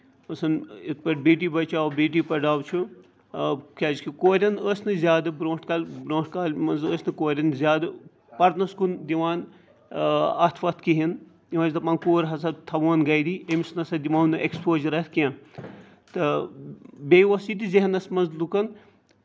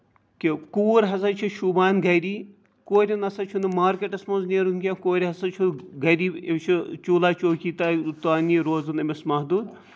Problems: background sounds at intervals